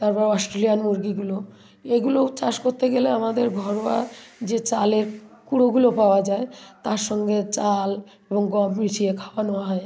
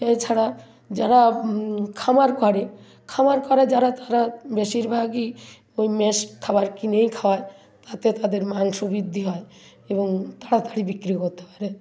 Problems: continuous background conversations